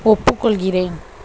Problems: constant background noise